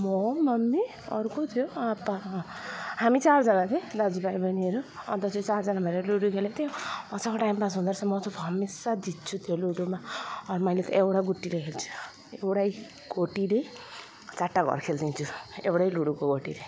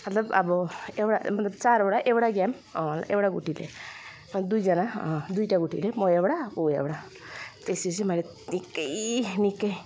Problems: none marked